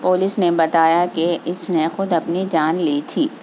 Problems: constant background noise